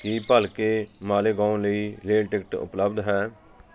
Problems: background sounds at intervals, continuous background conversations